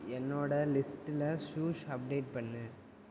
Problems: constant background noise, low volume